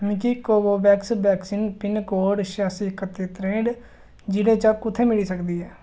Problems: none marked